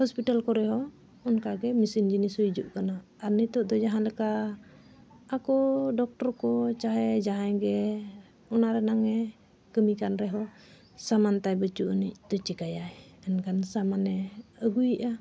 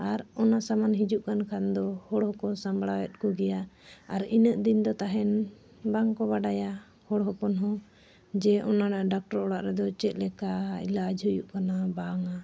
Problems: none marked